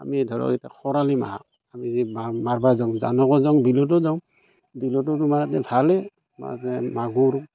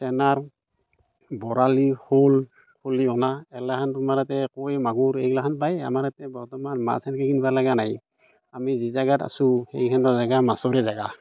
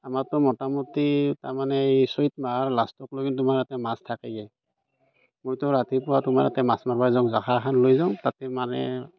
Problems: background sounds at intervals